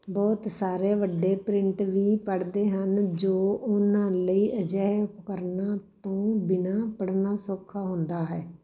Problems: background sounds at intervals